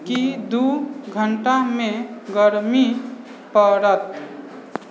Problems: background sounds at intervals